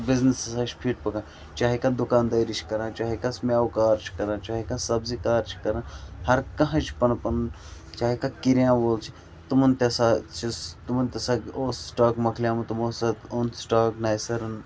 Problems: constant background noise, low volume